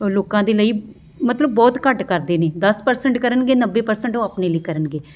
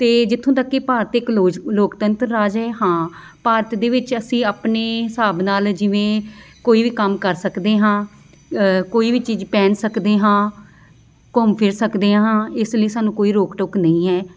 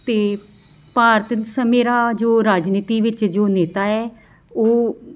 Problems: background sounds at intervals